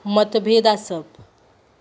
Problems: none marked